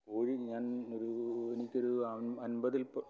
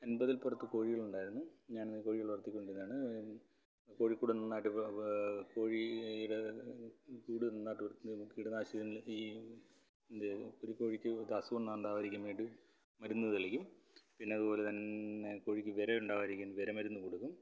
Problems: background conversations at intervals, low volume